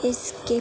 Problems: constant background noise, low volume